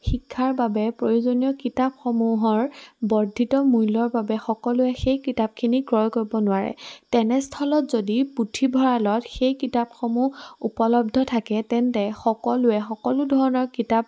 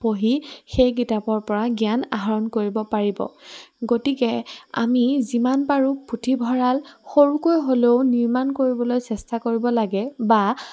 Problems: none marked